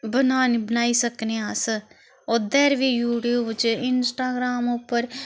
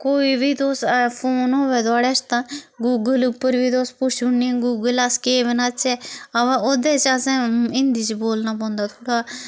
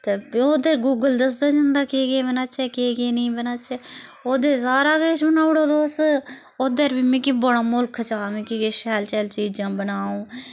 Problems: constant background noise